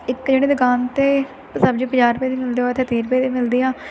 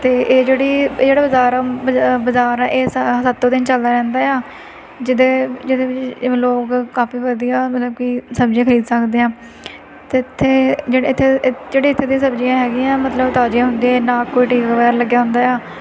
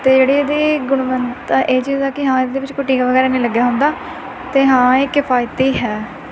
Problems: constant background noise